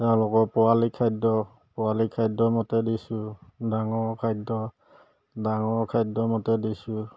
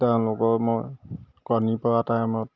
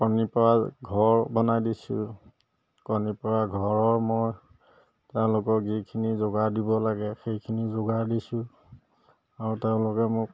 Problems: none marked